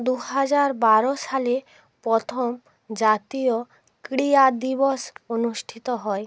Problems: none marked